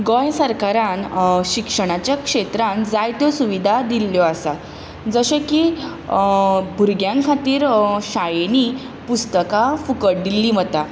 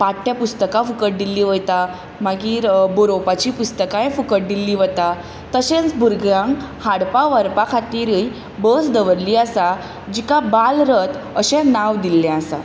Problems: constant background noise